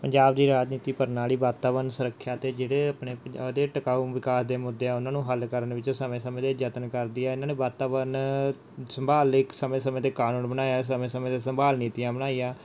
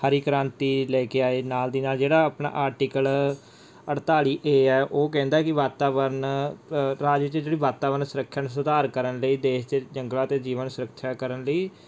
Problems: background sounds at intervals